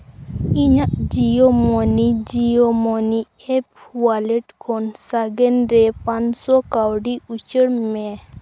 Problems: constant background noise